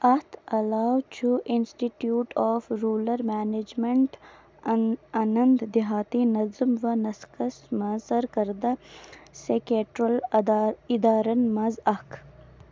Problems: background sounds at intervals